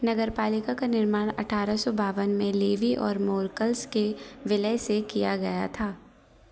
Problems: background sounds at intervals